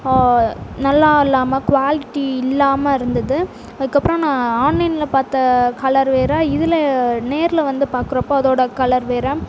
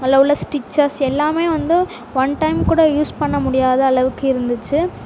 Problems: constant background noise